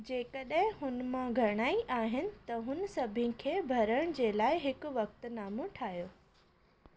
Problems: constant background noise